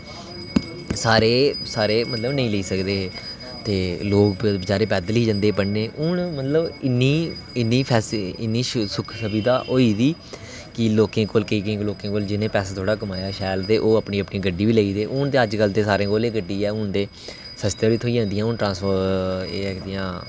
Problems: constant background noise